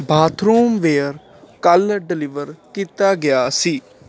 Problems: constant background noise